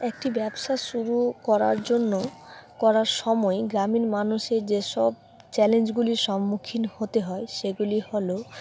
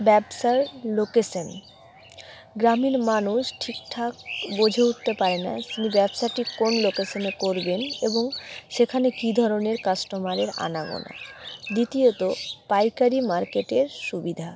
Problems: background sounds at intervals